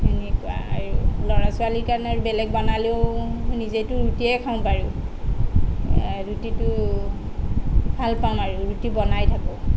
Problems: none marked